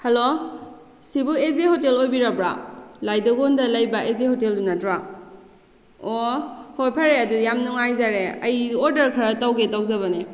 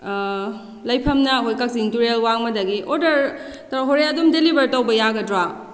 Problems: none marked